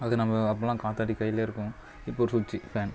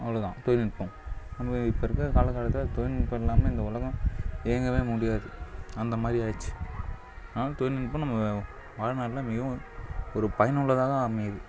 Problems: low volume